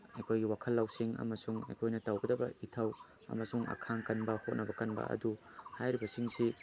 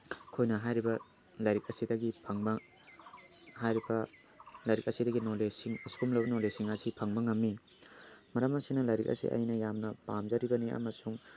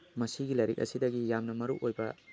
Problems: background sounds at intervals